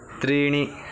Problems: constant background noise